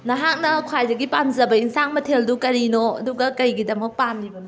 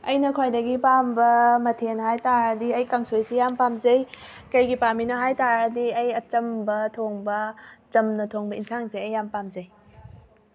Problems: background sounds at intervals